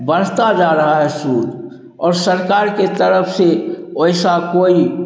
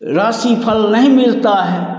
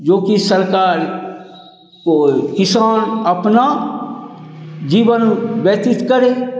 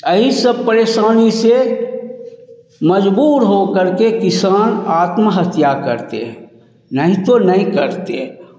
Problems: none marked